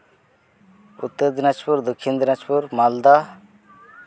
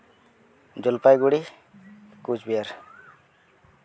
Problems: background sounds at intervals